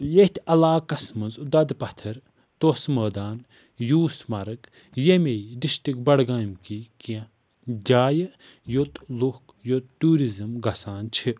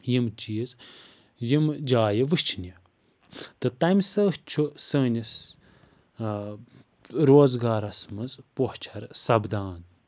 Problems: none marked